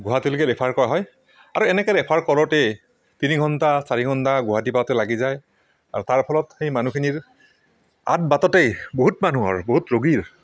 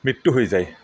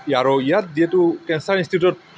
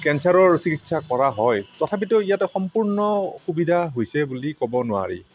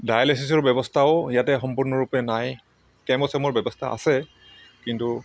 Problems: background sounds at intervals